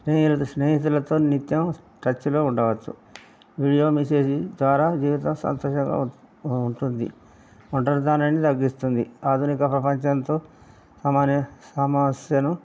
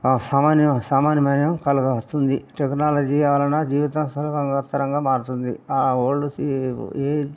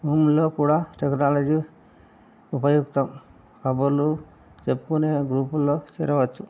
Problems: none marked